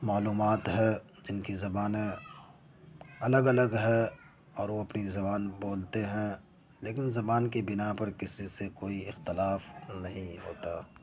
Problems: background sounds at intervals, continuous background conversations